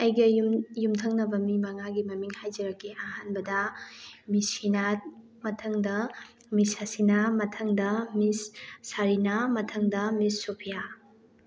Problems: background sounds at intervals